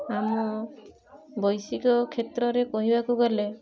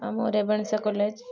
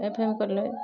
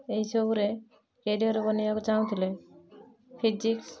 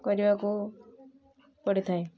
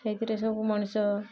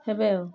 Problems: constant background noise